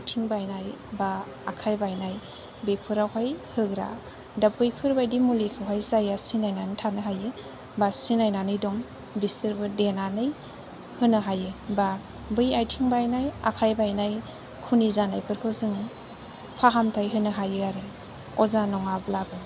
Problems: low volume